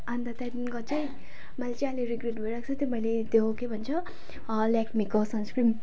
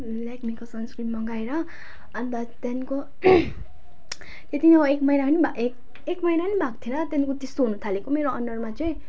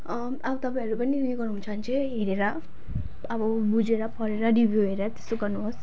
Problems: none marked